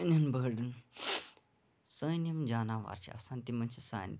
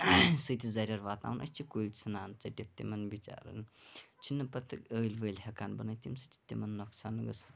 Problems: background sounds at intervals, low volume